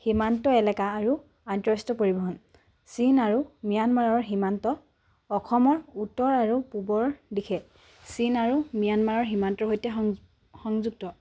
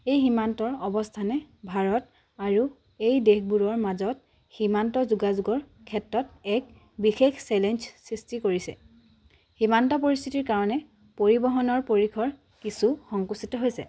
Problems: none marked